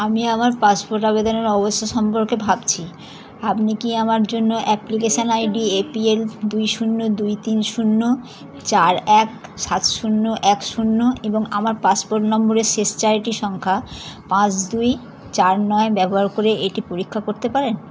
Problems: constant background noise